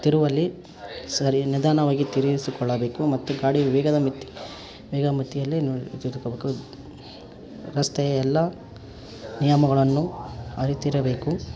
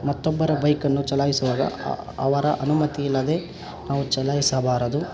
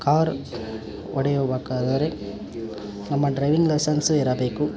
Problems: background sounds at intervals